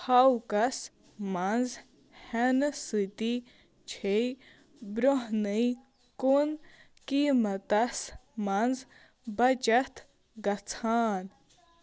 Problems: background sounds at intervals